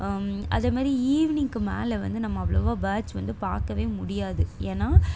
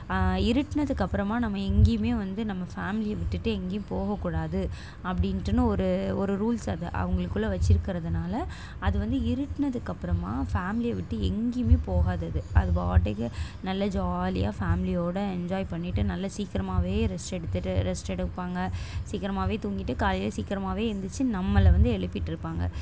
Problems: constant background noise